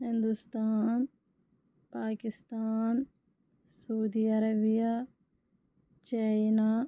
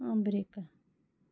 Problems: low volume